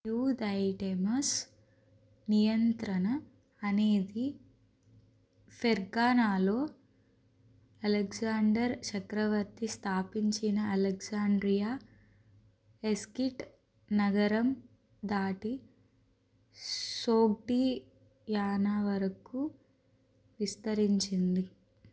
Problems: none marked